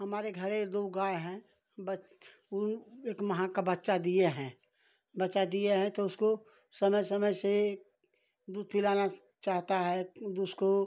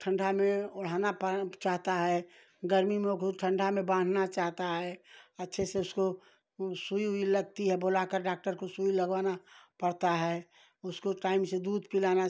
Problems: none marked